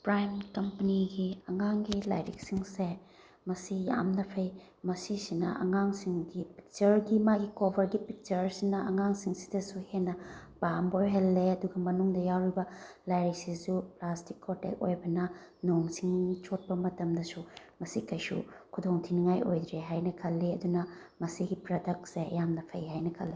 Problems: none marked